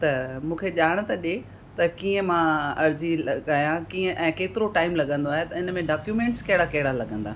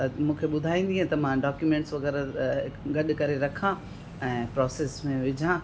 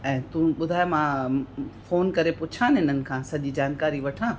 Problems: constant background noise, echo